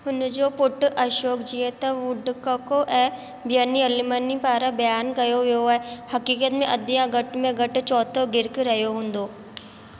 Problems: constant background noise, echo